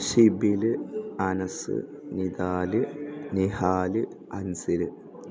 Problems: none marked